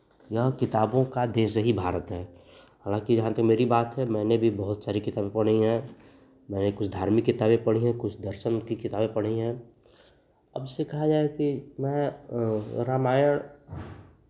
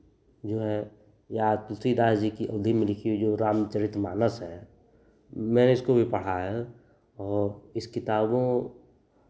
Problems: constant background noise